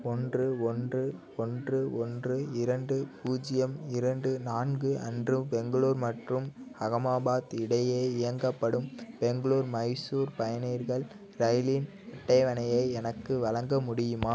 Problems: background sounds at intervals